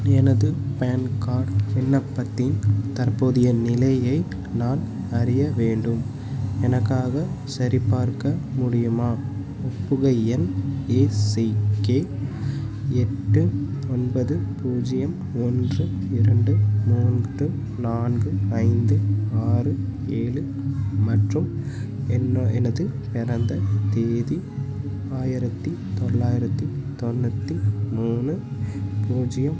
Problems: constant background noise